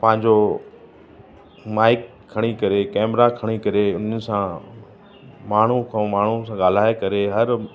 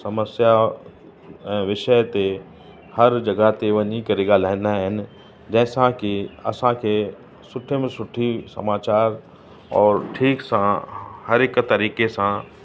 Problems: constant background noise